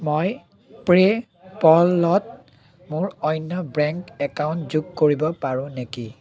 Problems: constant background noise, continuous background conversations